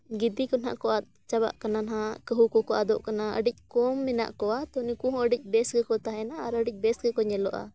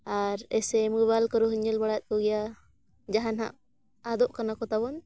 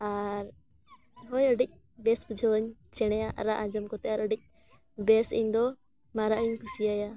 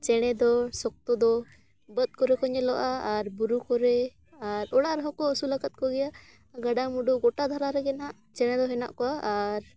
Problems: none marked